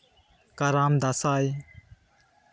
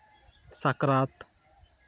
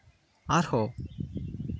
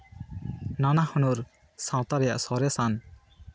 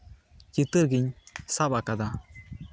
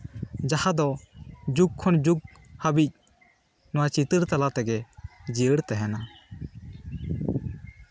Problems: constant background noise, background conversations at intervals